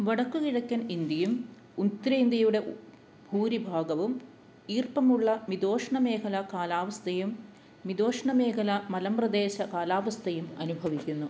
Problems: none marked